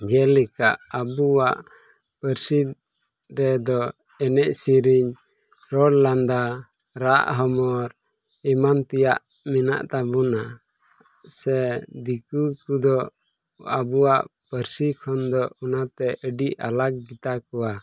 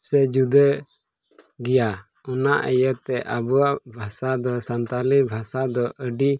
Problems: none marked